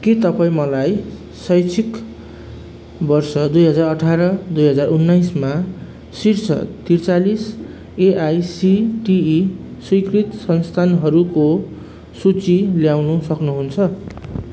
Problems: constant background noise